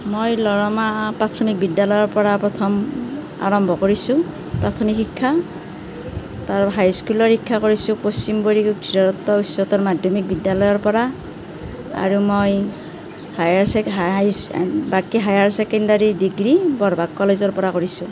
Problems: none marked